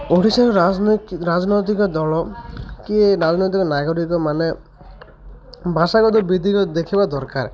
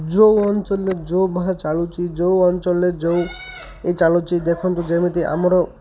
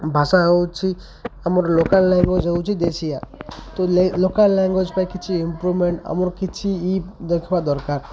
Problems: constant background noise, continuous background conversations